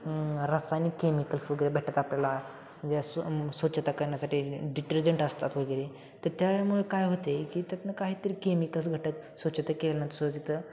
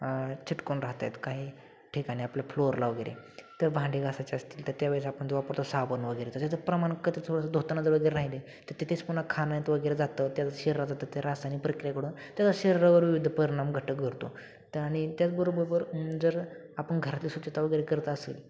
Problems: constant background noise, continuous background conversations